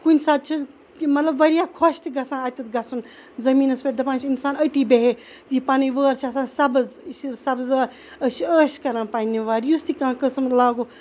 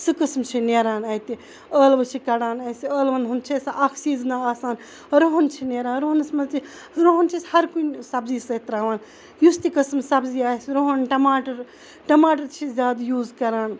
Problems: none marked